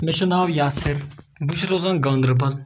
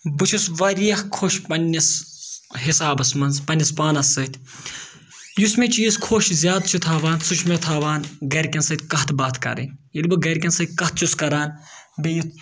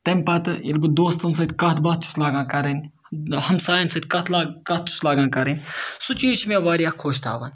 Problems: none marked